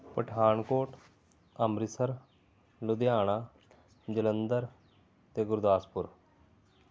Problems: background sounds at intervals